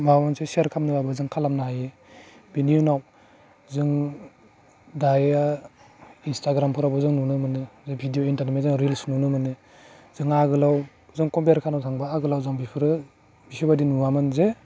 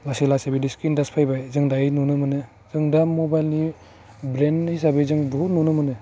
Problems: constant background noise